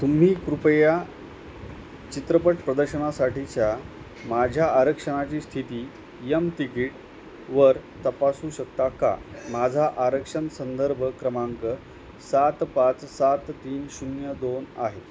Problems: constant background noise